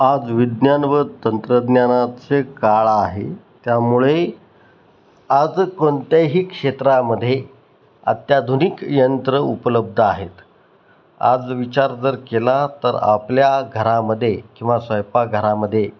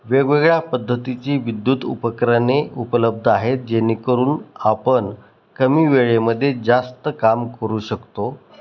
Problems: none marked